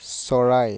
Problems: background sounds at intervals